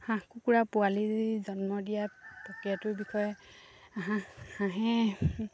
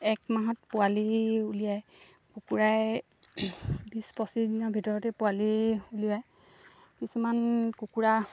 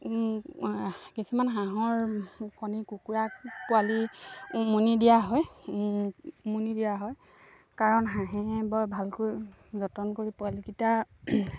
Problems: low volume